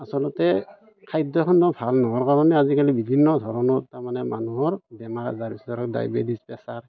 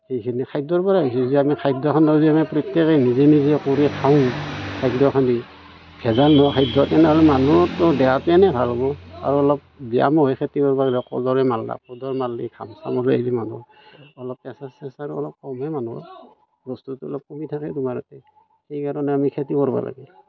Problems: background sounds at intervals, background conversations at intervals